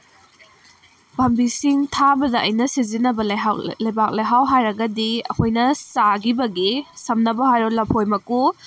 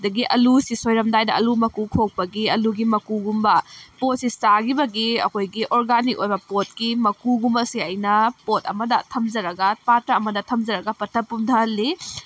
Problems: background sounds at intervals